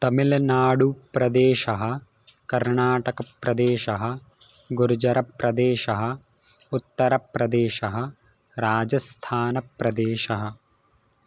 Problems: none marked